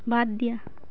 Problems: none marked